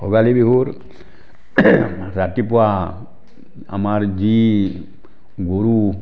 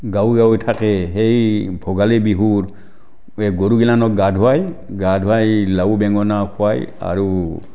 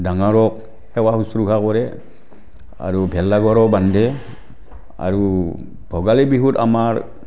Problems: constant background noise